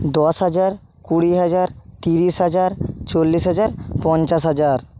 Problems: constant background noise